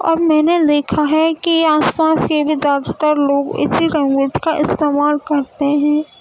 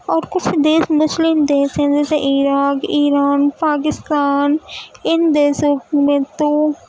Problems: constant background noise